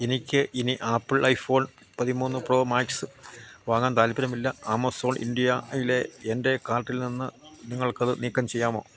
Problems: constant background noise, low volume